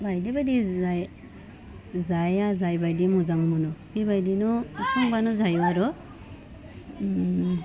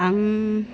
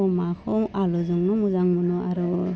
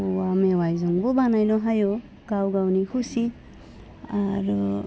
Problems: low volume